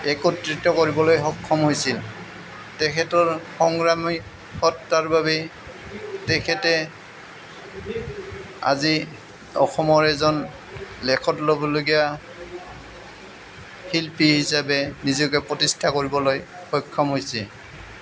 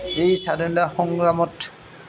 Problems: none marked